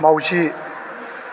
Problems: constant background noise